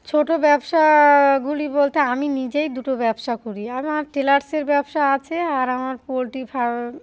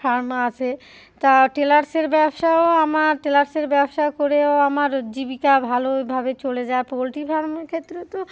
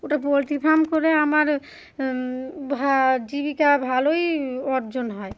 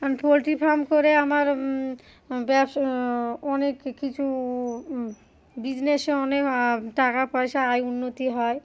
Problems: none marked